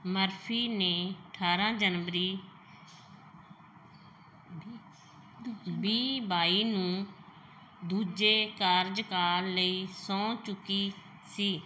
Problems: none marked